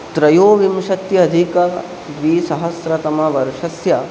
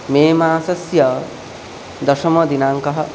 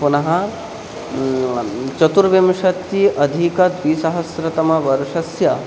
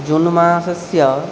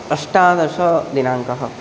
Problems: constant background noise